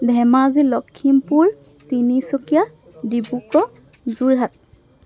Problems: background sounds at intervals